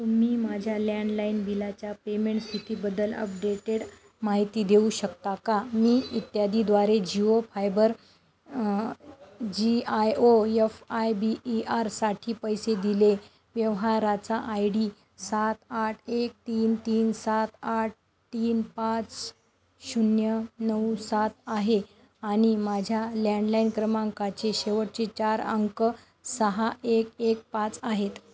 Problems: background sounds at intervals, background conversations at intervals